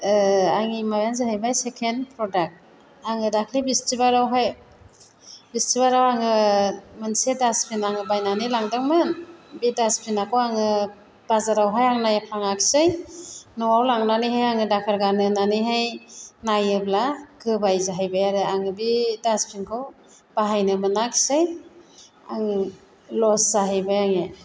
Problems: constant background noise